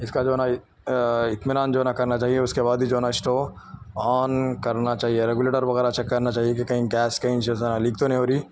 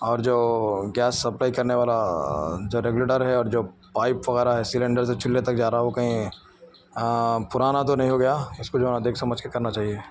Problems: none marked